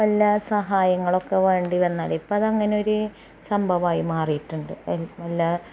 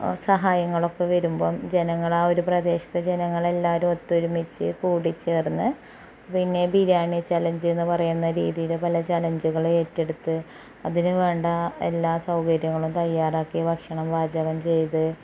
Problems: background sounds at intervals, low volume